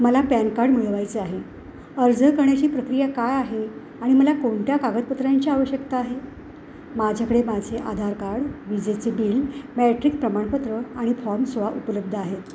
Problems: background sounds at intervals